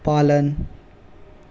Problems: none marked